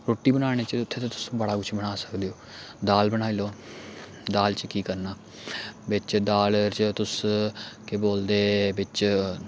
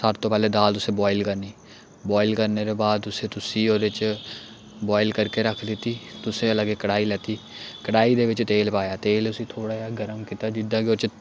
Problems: none marked